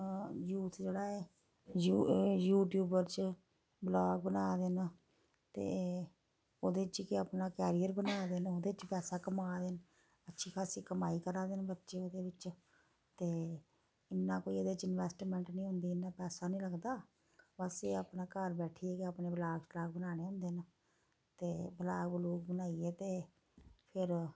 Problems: background sounds at intervals, low volume